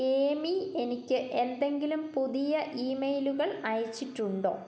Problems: low volume